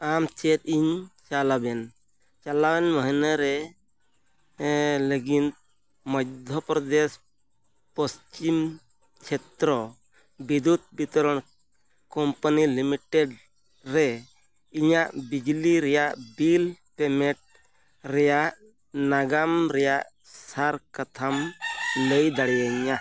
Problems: none marked